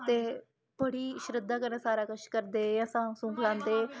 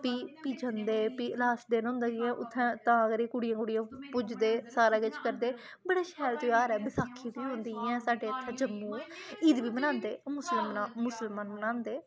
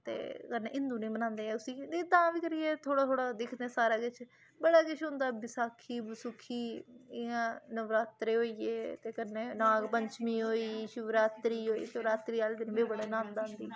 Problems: low volume